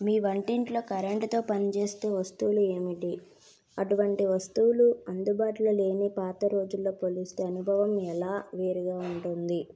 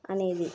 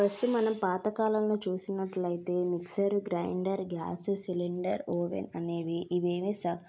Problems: background sounds at intervals